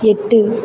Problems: background sounds at intervals